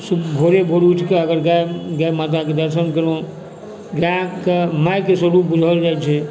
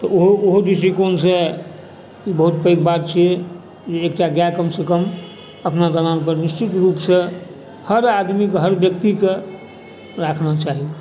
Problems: constant background noise, background conversations at intervals